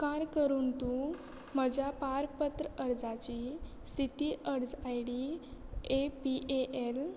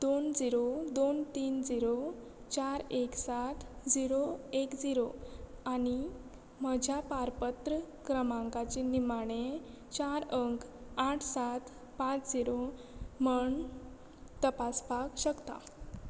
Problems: none marked